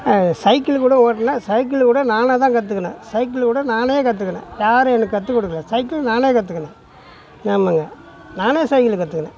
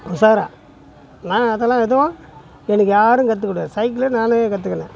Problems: background sounds at intervals, continuous background conversations